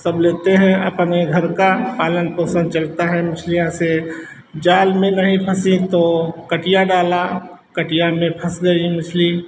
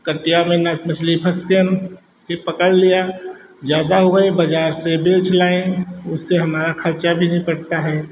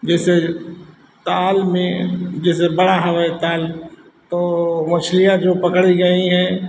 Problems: constant background noise, background conversations at intervals